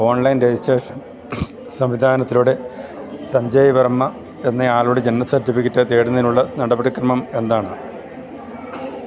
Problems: constant background noise